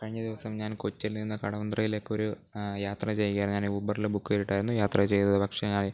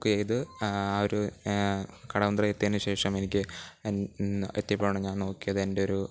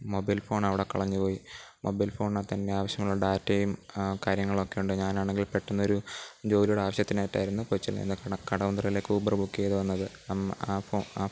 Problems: background sounds at intervals, low volume